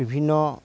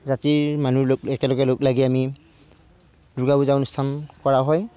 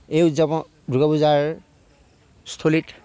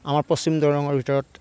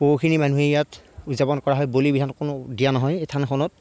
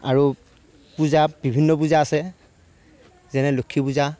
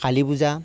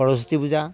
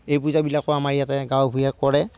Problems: background sounds at intervals, low volume